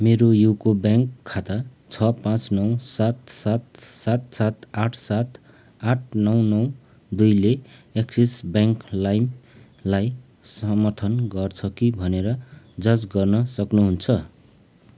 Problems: none marked